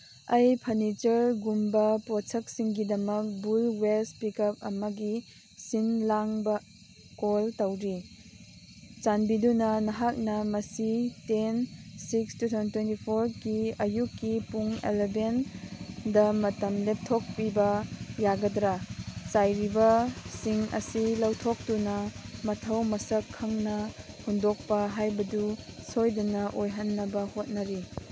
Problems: background sounds at intervals